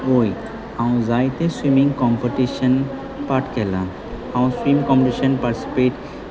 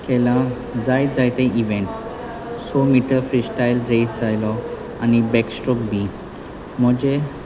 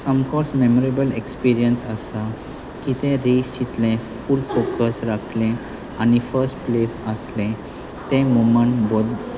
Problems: constant background noise, continuous background conversations